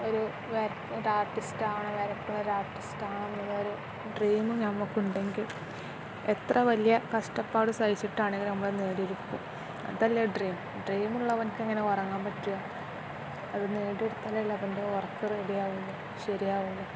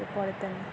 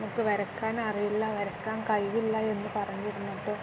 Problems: none marked